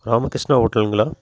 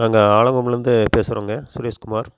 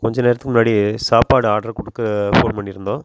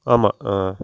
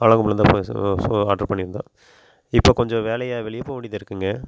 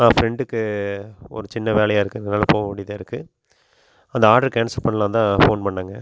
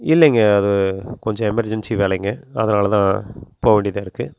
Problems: none marked